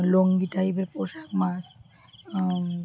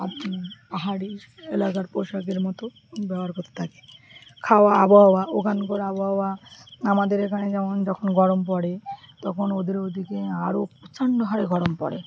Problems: background conversations at intervals